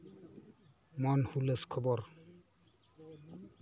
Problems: low volume